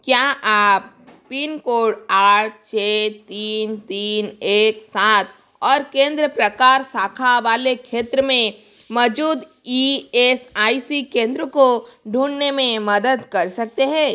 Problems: constant background noise